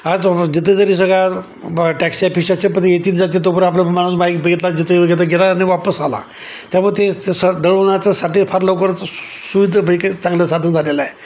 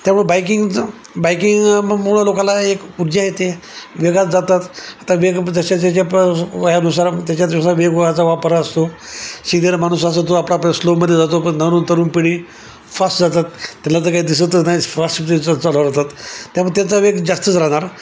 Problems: constant background noise